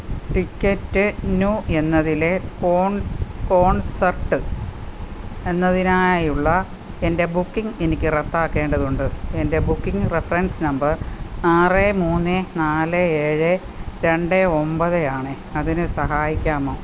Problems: constant background noise